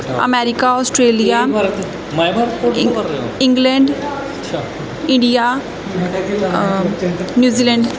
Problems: continuous background conversations